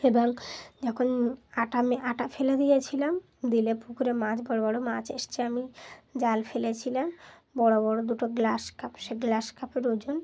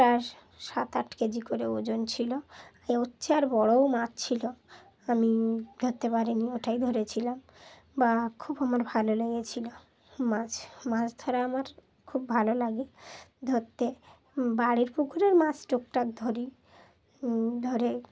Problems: background sounds at intervals